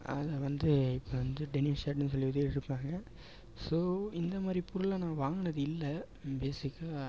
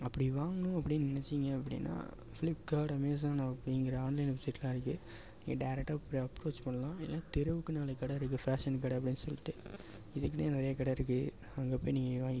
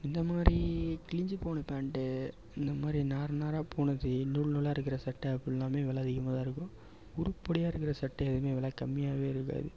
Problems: background sounds at intervals, low volume